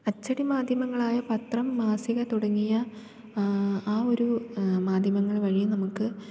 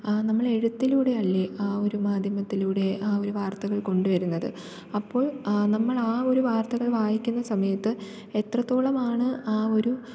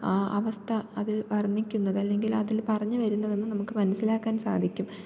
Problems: low volume